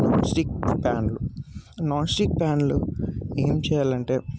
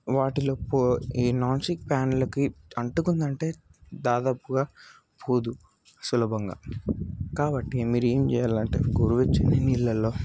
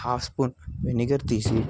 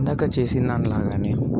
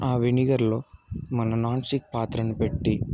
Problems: constant background noise, background conversations at intervals